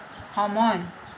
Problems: constant background noise